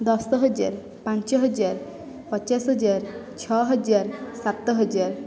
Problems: none marked